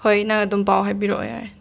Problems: none marked